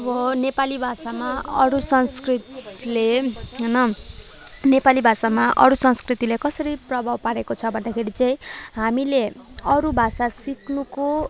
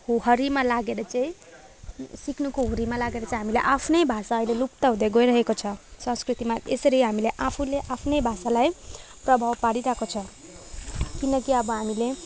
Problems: background sounds at intervals